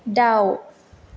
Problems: background conversations at intervals